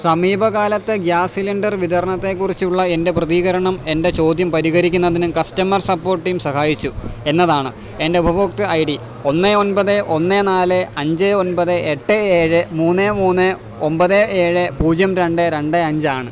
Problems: none marked